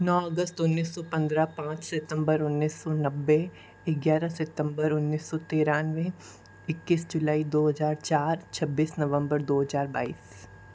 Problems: low volume